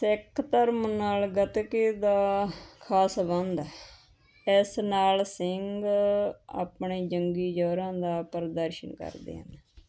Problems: none marked